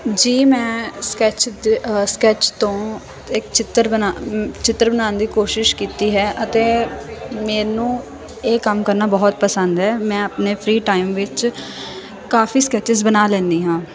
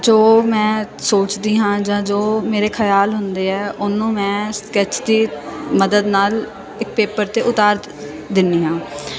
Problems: constant background noise